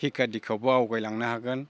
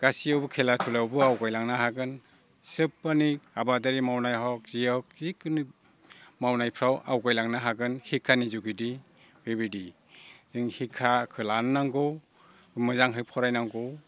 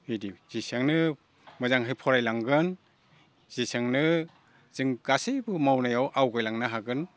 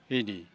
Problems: low volume